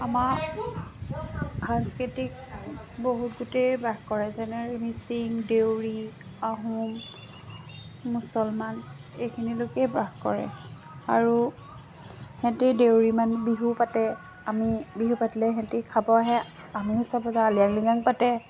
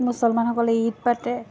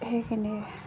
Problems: background sounds at intervals, background conversations at intervals